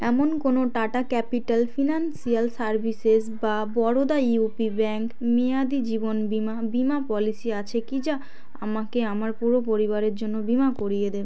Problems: constant background noise, continuous background conversations